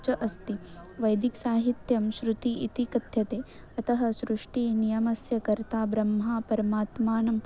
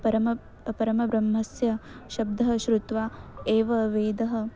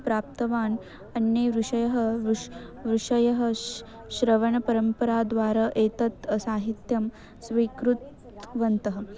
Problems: none marked